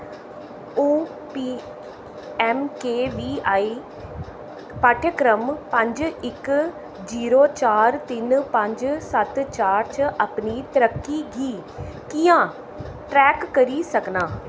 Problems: none marked